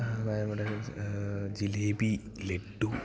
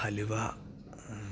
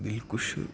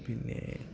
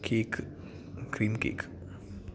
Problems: background conversations at intervals